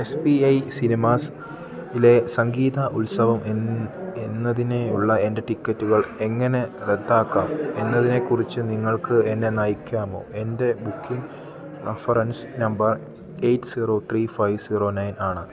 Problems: constant background noise